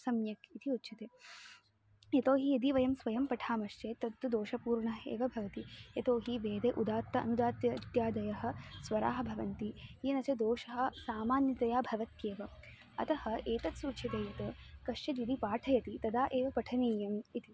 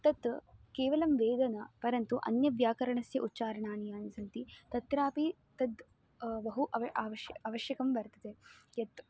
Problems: background sounds at intervals